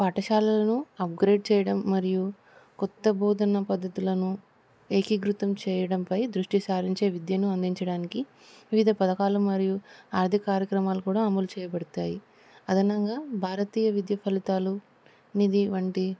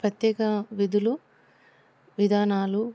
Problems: constant background noise